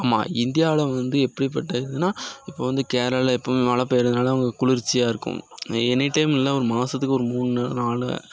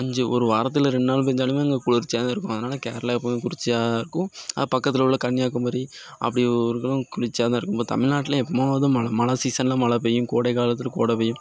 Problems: constant background noise